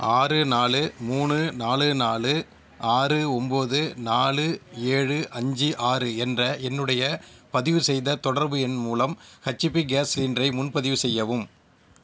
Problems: none marked